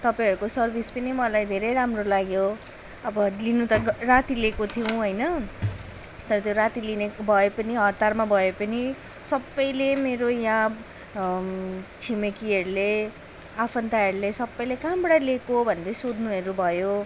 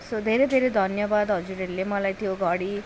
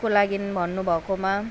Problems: none marked